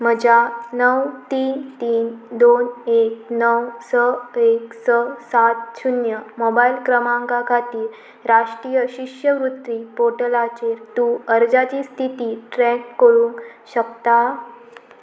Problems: constant background noise